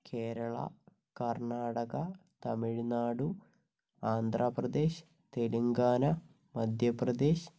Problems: low volume